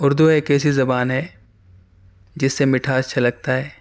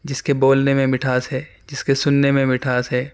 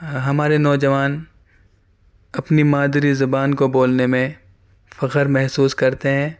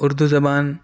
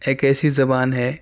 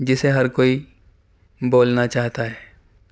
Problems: none marked